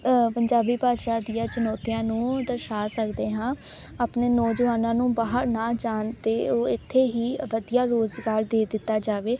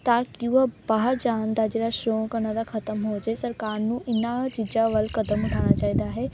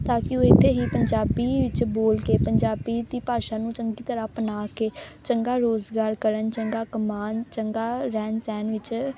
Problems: constant background noise